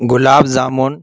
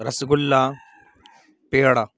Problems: background sounds at intervals